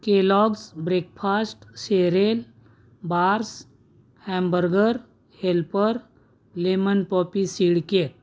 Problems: none marked